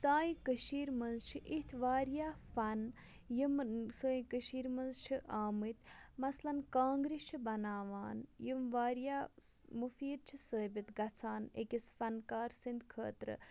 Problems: none marked